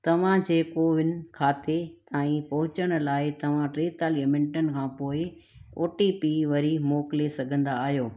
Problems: none marked